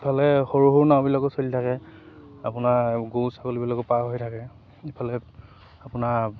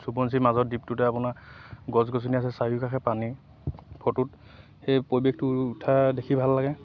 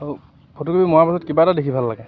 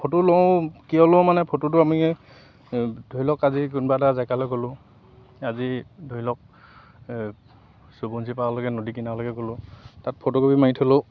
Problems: constant background noise